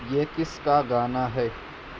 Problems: constant background noise